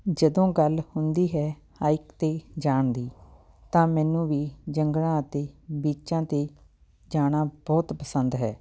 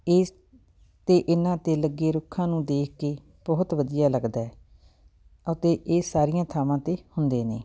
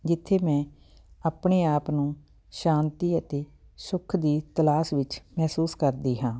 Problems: background sounds at intervals, background conversations at intervals